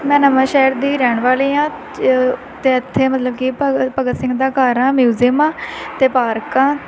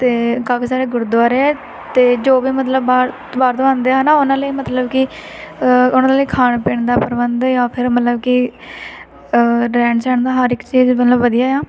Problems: constant background noise